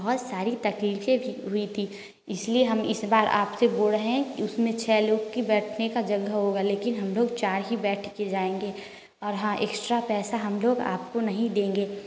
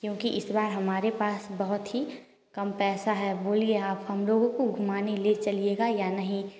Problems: constant background noise